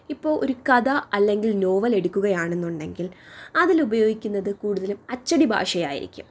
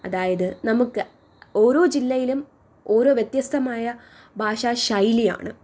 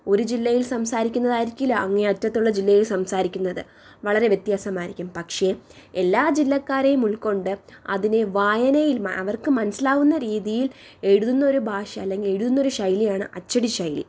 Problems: none marked